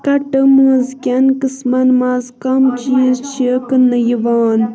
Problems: constant background noise, continuous background conversations